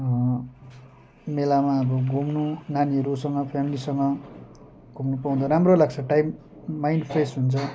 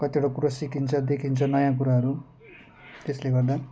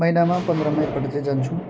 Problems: constant background noise